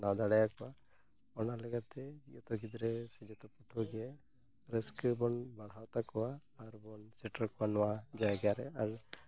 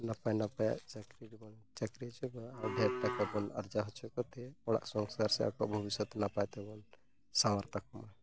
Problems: background sounds at intervals